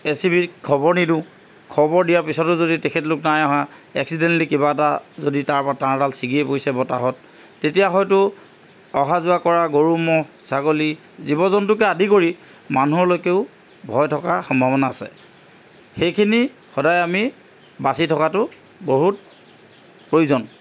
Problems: constant background noise